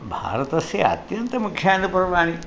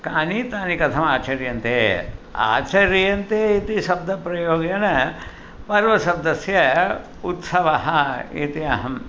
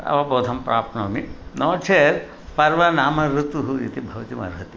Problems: constant background noise